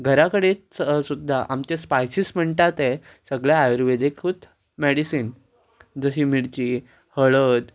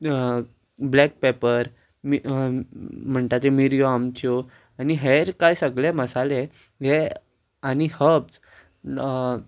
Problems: constant background noise